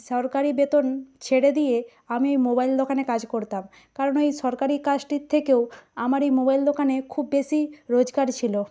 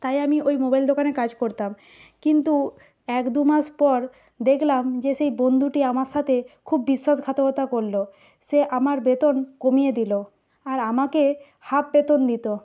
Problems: none marked